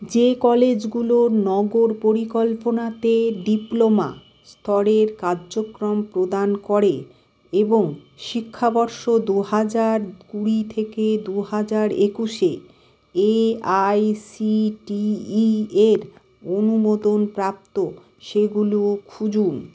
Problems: constant background noise